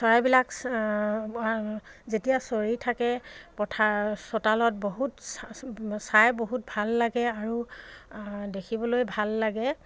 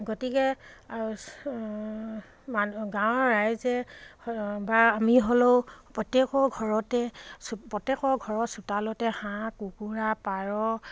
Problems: none marked